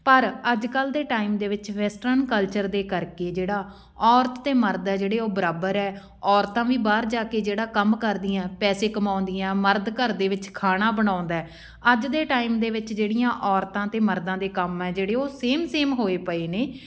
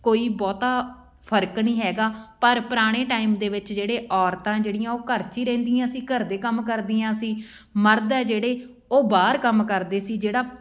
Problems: background sounds at intervals